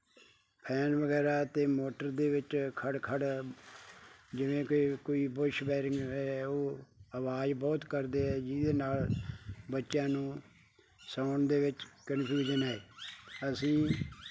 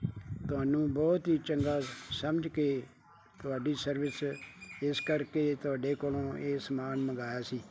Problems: background conversations at intervals